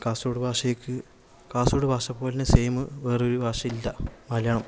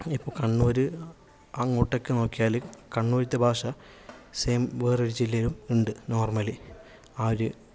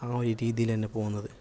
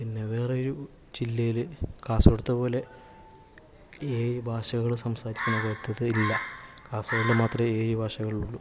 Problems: background sounds at intervals